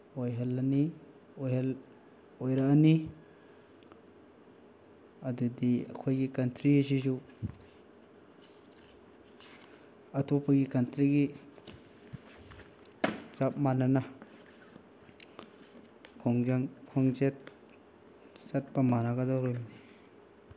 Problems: none marked